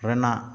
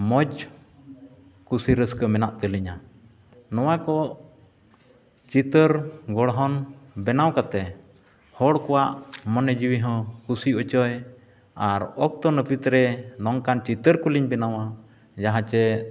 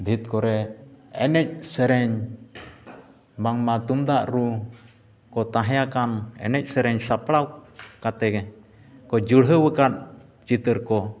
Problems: echo